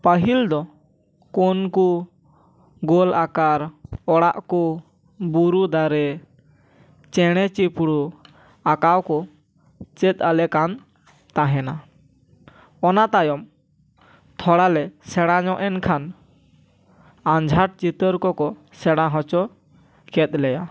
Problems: none marked